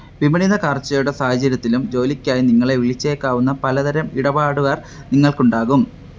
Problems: background sounds at intervals